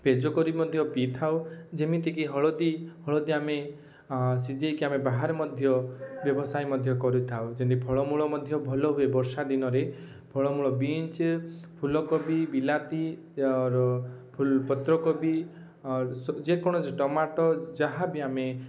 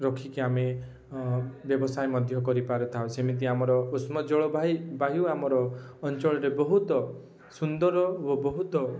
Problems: none marked